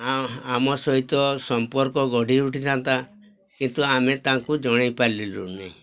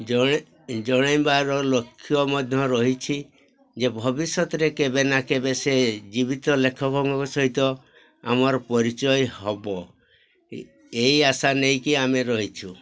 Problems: constant background noise, continuous background conversations